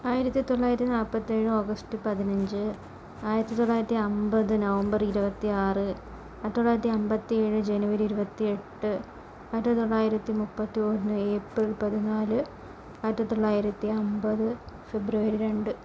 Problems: constant background noise, low volume